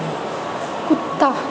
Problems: constant background noise